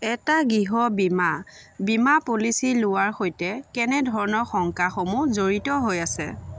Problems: none marked